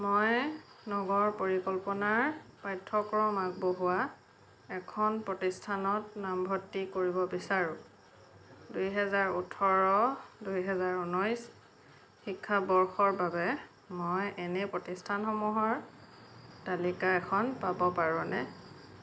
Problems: none marked